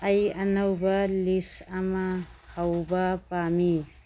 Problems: background sounds at intervals